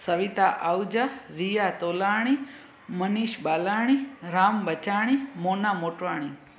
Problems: constant background noise